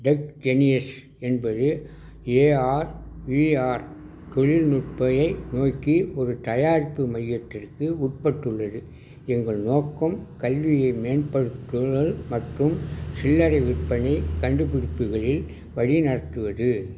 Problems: none marked